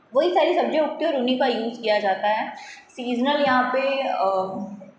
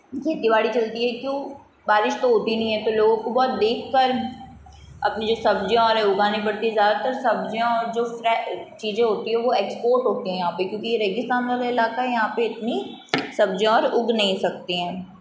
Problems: background sounds at intervals